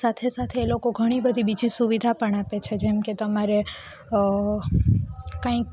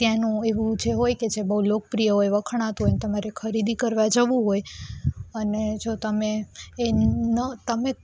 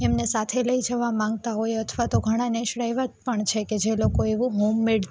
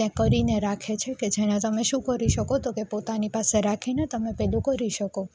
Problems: none marked